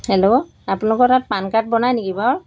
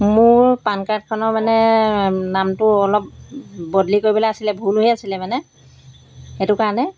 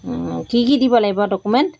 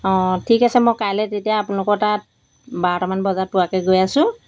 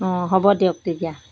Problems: background sounds at intervals